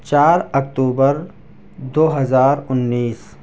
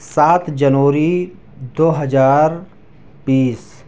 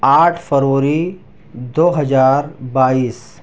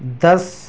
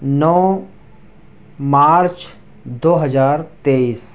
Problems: background sounds at intervals